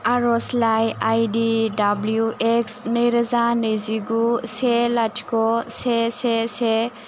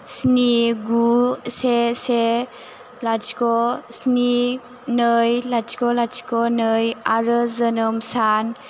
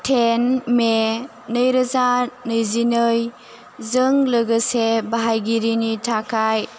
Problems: constant background noise